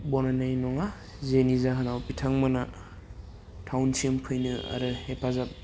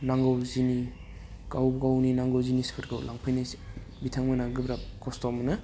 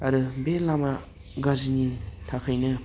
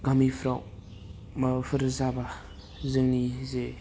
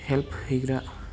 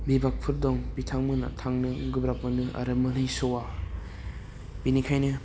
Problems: low volume